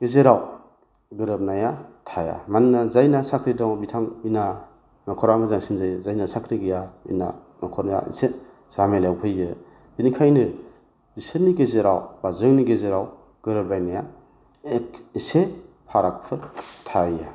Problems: low volume